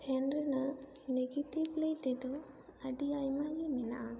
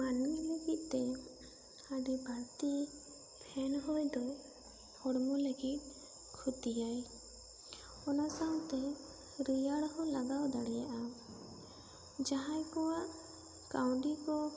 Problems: constant background noise